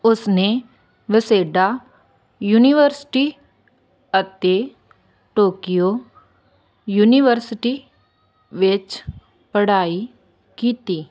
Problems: constant background noise